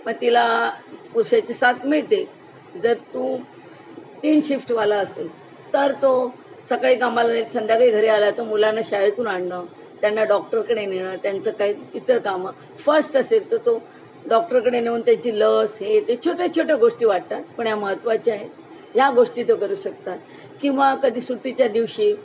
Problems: constant background noise